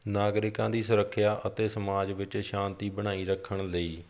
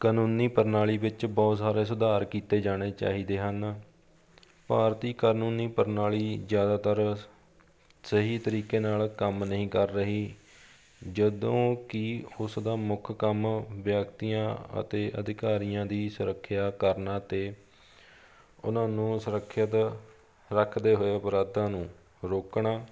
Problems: background sounds at intervals, background conversations at intervals